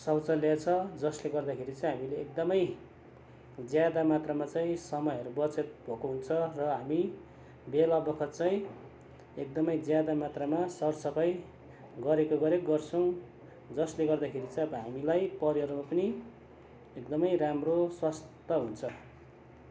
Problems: constant background noise